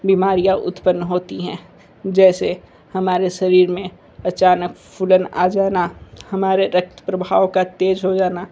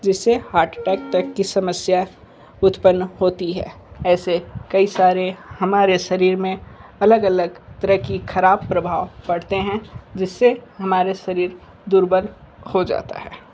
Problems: none marked